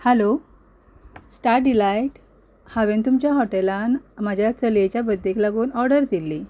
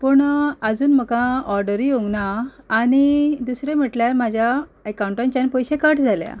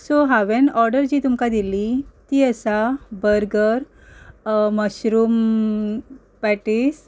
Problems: background sounds at intervals, background conversations at intervals